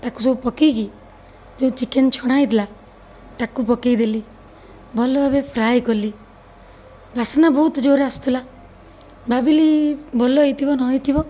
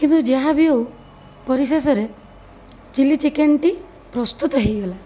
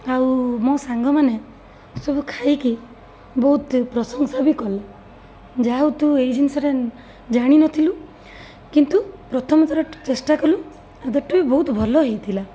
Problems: none marked